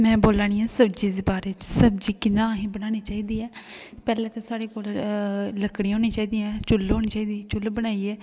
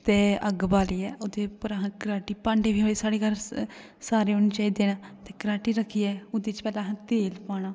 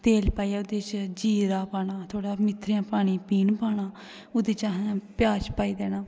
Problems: constant background noise, echo